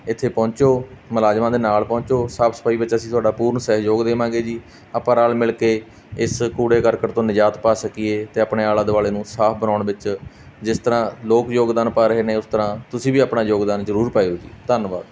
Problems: none marked